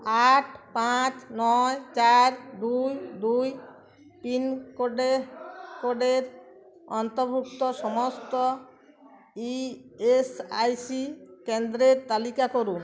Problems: continuous background conversations